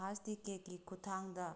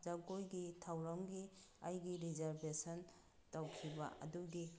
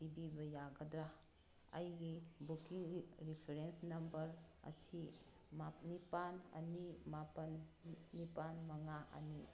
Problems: background sounds at intervals